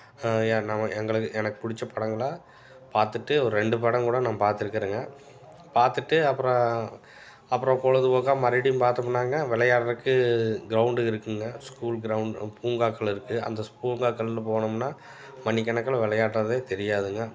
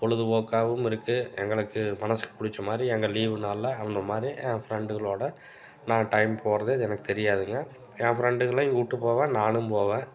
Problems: background sounds at intervals